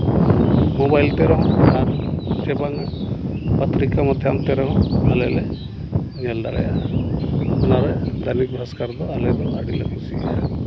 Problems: none marked